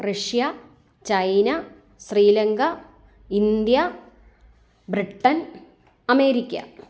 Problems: none marked